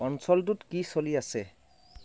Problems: background sounds at intervals, low volume